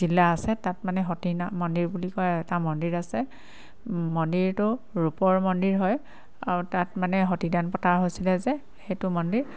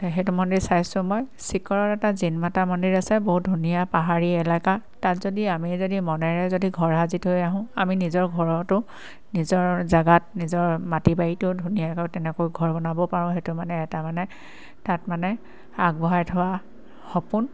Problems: constant background noise